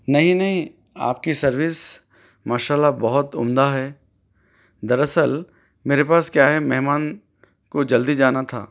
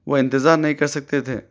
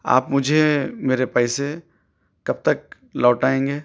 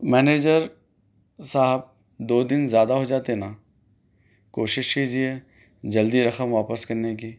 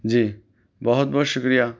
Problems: none marked